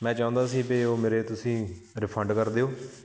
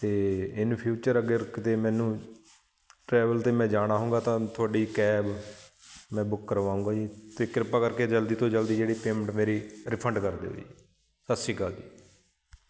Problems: constant background noise